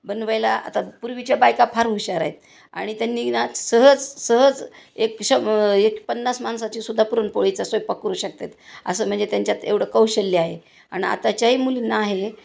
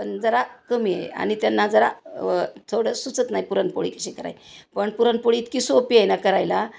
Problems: constant background noise